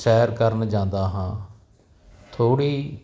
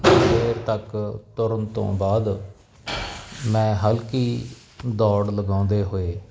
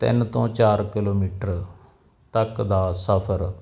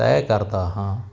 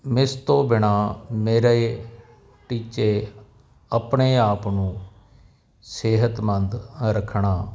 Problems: background sounds at intervals